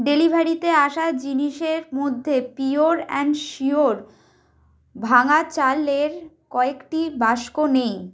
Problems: none marked